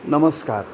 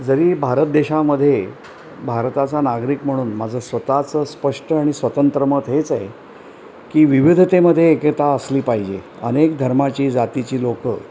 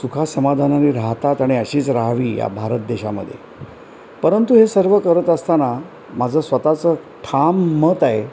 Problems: constant background noise